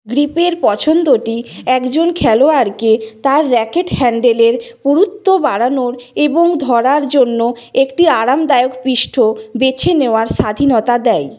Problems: none marked